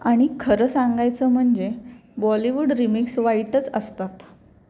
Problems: none marked